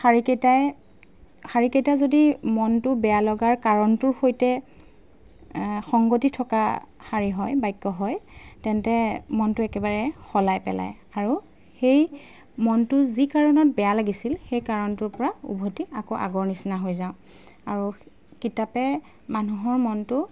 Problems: background sounds at intervals